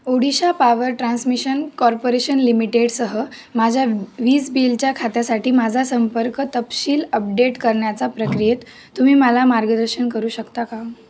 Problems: none marked